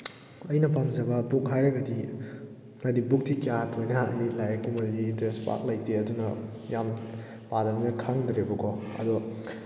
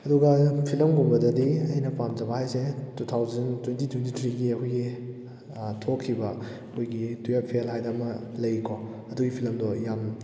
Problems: none marked